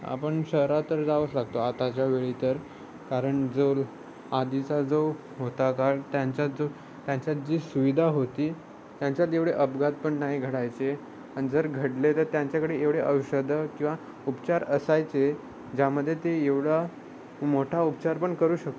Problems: constant background noise, background conversations at intervals